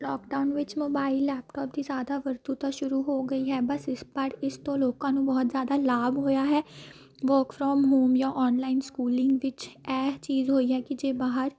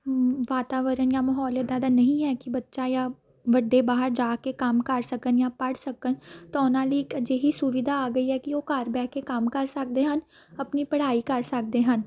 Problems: background sounds at intervals